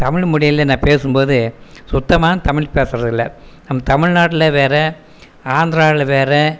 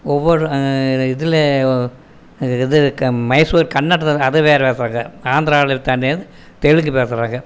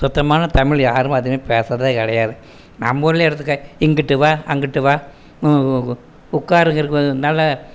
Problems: background sounds at intervals